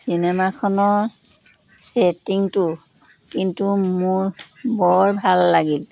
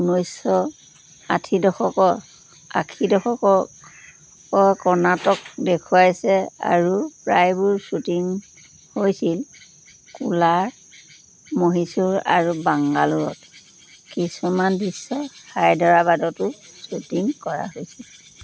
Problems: none marked